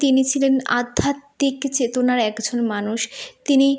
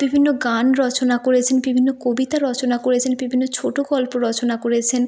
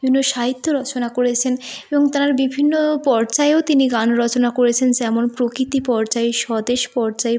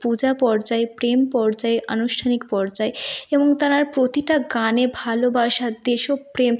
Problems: background sounds at intervals